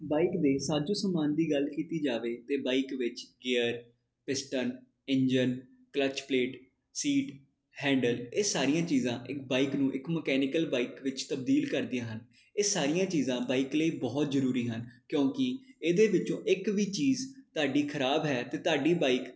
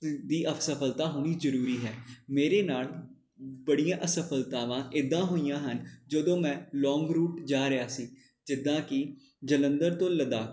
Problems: none marked